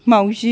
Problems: none marked